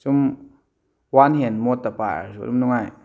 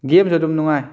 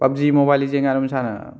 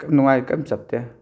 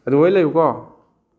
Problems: none marked